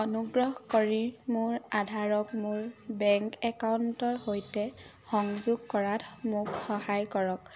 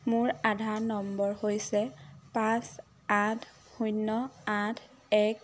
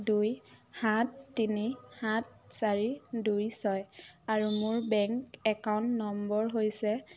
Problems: low volume